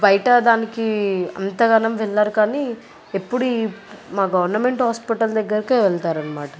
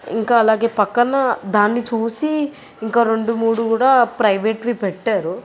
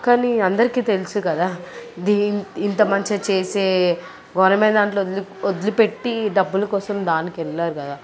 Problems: none marked